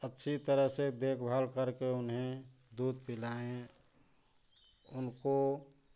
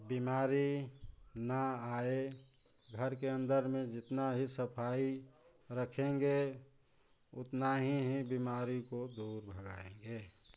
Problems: none marked